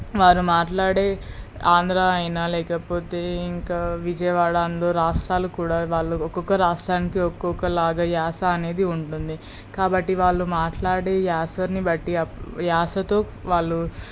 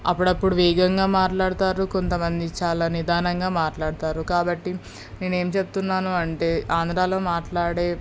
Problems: none marked